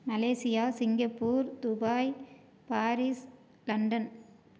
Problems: low volume